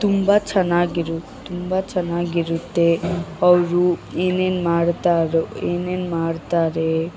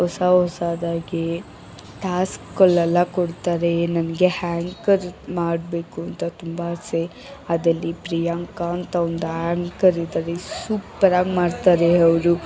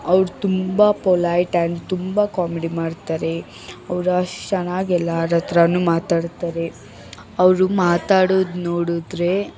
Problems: background sounds at intervals, background conversations at intervals